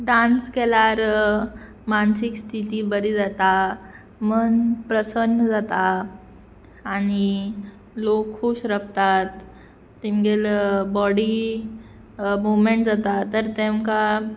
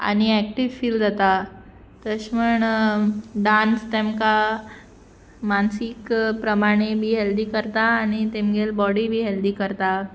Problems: constant background noise